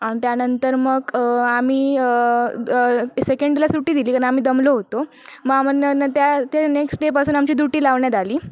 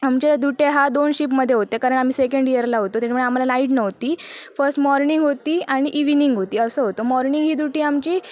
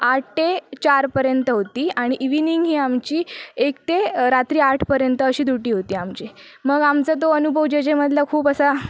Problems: none marked